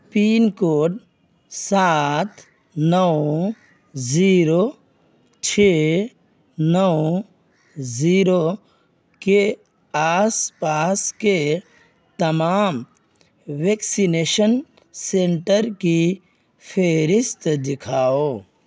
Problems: constant background noise